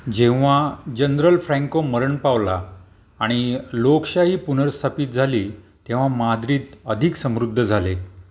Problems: background sounds at intervals